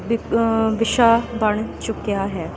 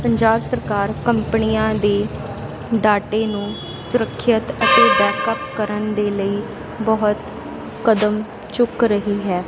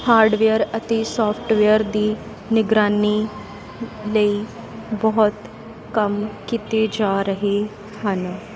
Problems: none marked